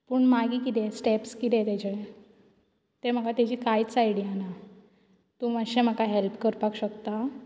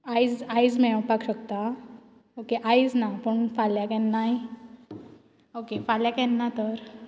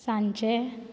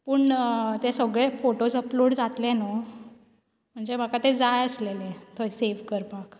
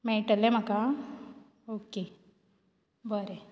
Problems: background sounds at intervals